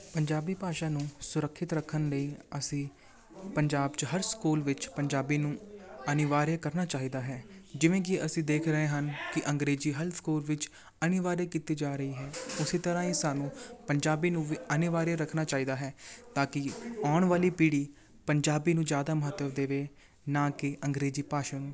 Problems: continuous background conversations